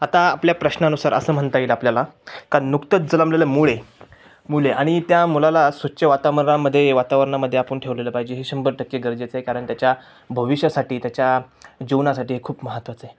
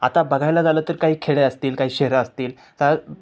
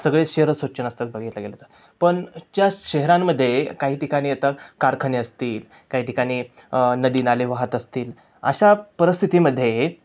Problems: none marked